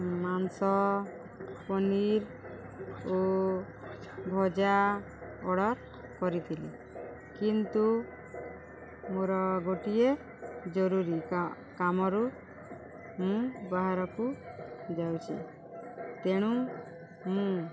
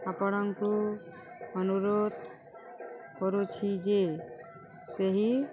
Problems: constant background noise